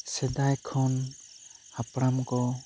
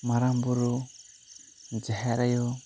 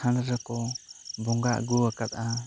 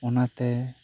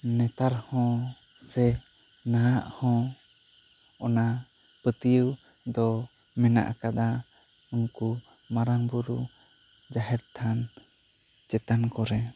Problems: none marked